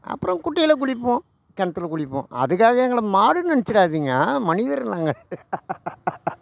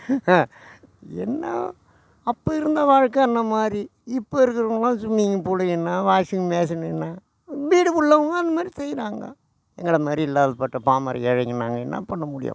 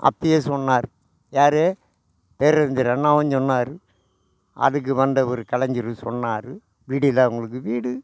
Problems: constant background noise